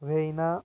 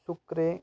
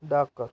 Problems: background sounds at intervals